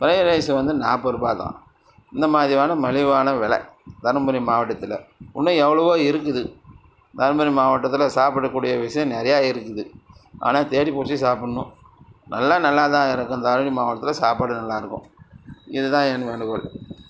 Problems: constant background noise